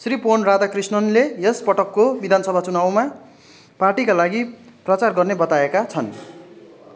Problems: continuous background conversations